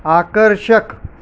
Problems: none marked